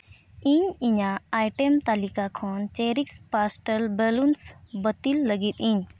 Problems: none marked